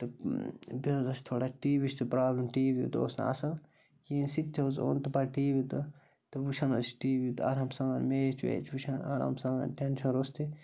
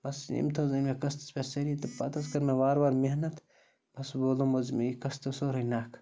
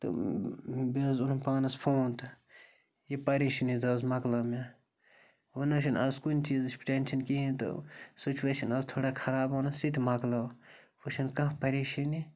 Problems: constant background noise